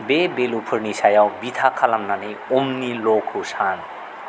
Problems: constant background noise